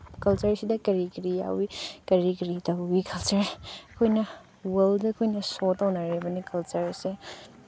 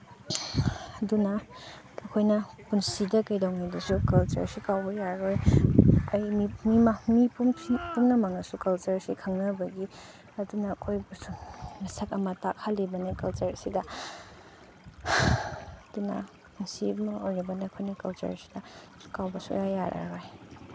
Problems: background sounds at intervals, low volume